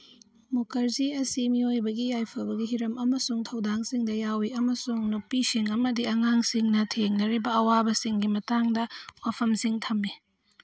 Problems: none marked